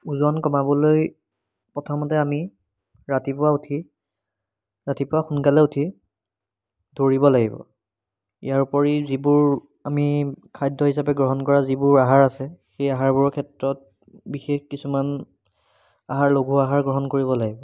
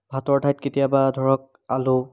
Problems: background sounds at intervals